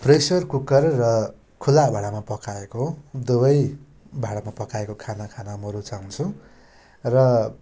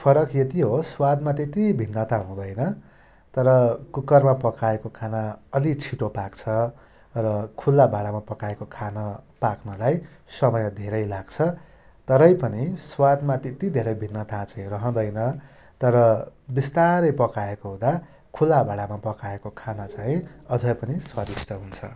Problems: constant background noise